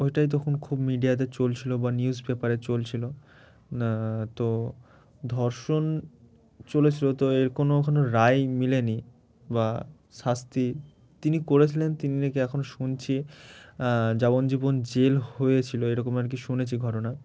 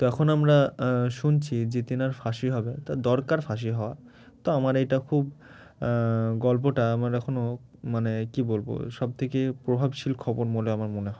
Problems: background sounds at intervals